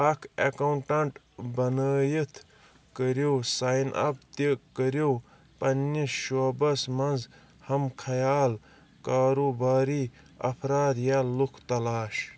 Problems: background sounds at intervals